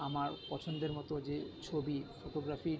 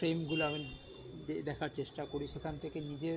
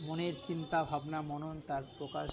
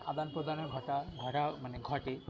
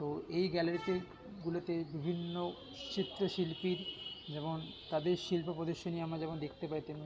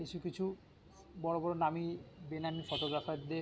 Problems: constant background noise, continuous background conversations